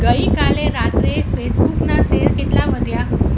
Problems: constant background noise